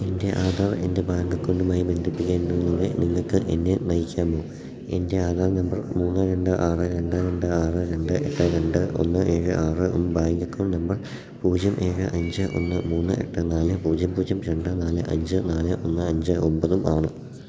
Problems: background sounds at intervals